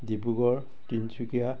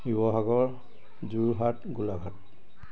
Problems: constant background noise